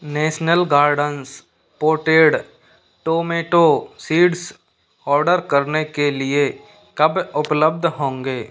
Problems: constant background noise